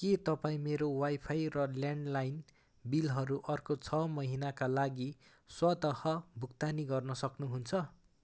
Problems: none marked